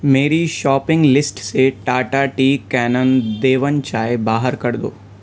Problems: constant background noise, background conversations at intervals